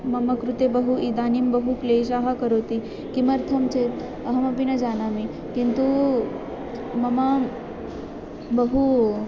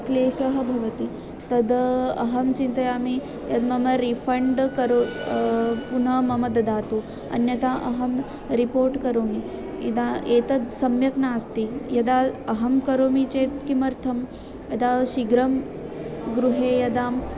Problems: constant background noise, continuous background conversations